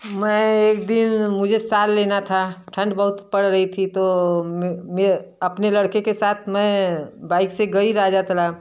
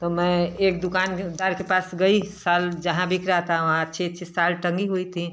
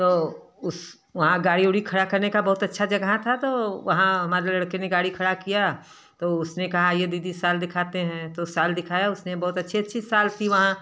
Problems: background sounds at intervals